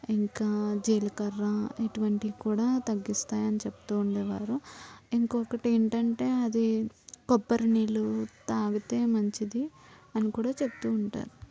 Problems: none marked